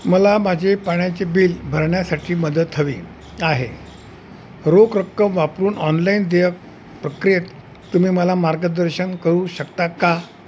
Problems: constant background noise